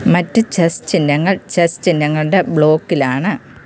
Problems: constant background noise